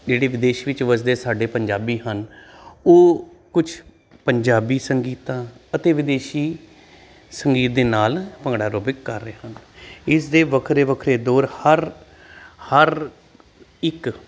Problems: constant background noise